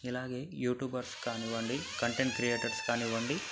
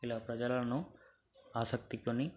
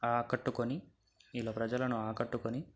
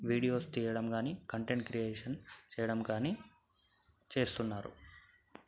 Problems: background sounds at intervals, low volume